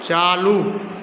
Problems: constant background noise